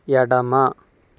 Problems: constant background noise